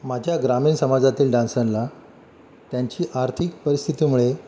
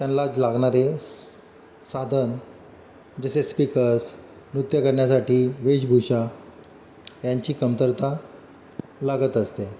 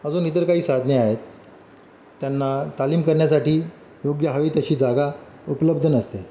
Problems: none marked